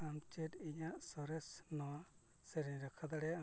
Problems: constant background noise, low volume